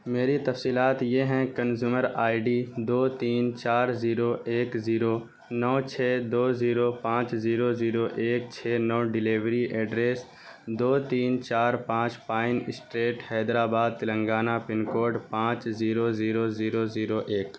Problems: background sounds at intervals